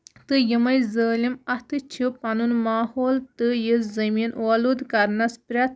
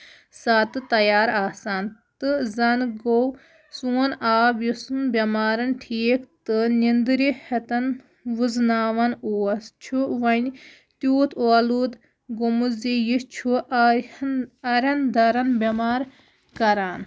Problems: background sounds at intervals